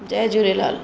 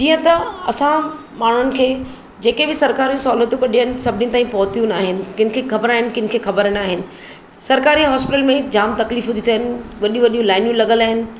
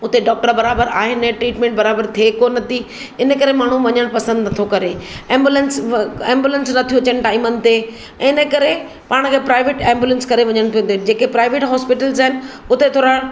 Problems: constant background noise